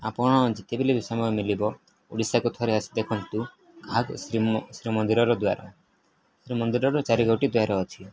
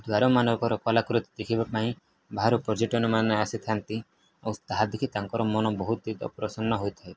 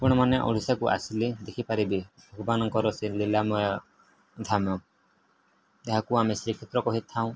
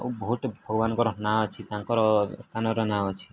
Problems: none marked